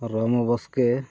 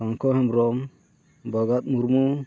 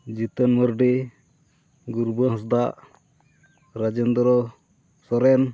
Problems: none marked